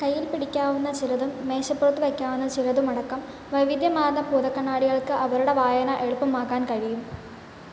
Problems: constant background noise, echo, low volume